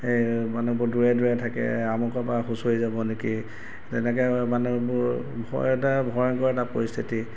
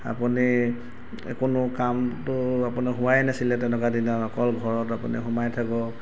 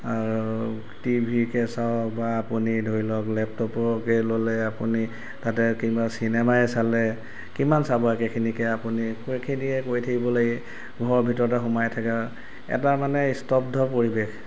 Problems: background sounds at intervals